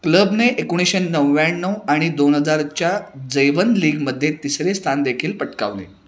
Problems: none marked